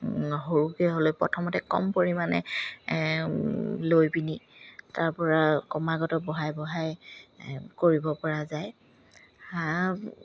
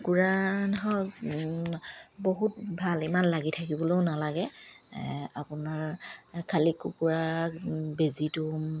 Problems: none marked